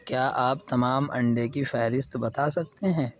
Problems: none marked